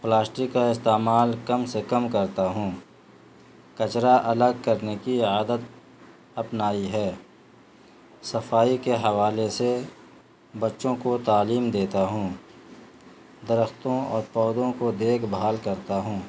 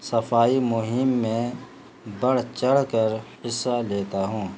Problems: constant background noise